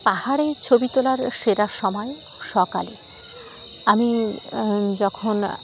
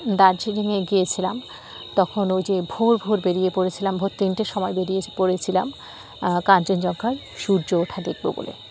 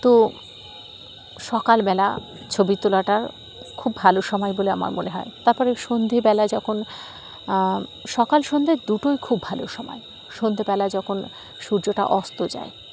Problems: none marked